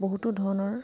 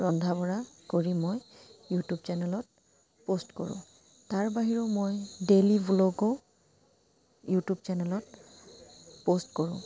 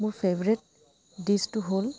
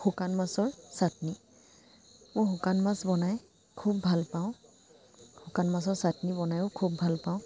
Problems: constant background noise